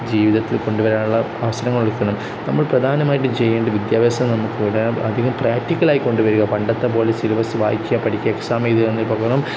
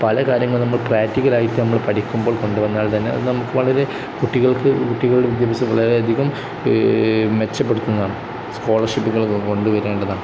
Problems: constant background noise